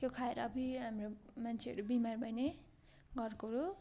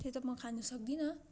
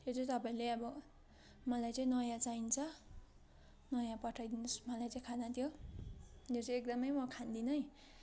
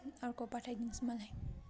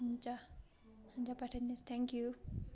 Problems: continuous background conversations